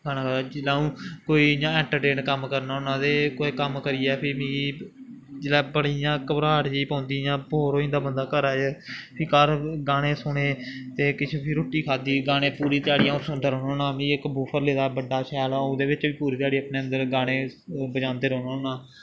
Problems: background sounds at intervals